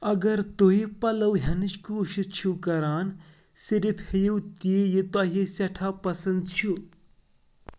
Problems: background sounds at intervals